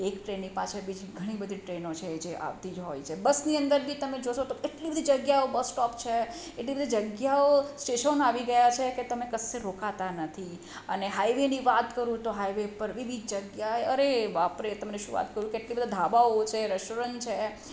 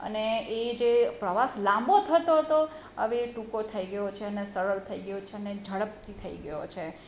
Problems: none marked